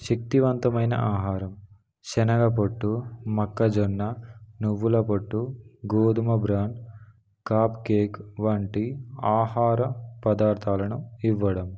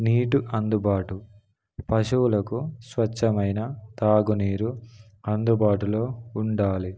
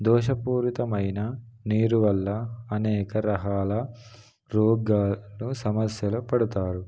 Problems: background sounds at intervals